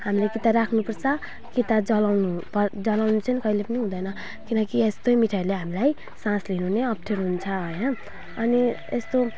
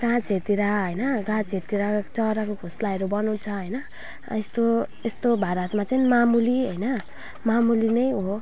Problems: background sounds at intervals